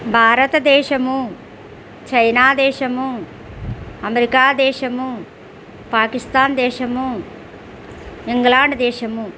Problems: constant background noise